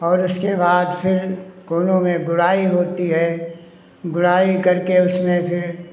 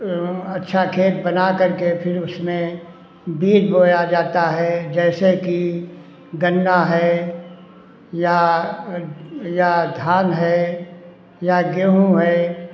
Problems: none marked